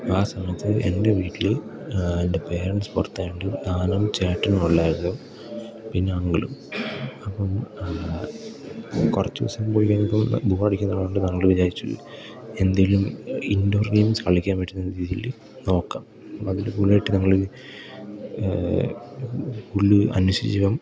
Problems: background sounds at intervals